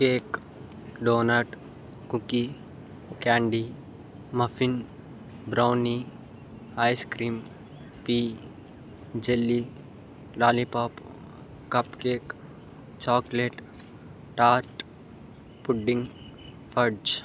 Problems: constant background noise